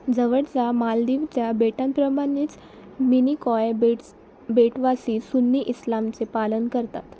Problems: constant background noise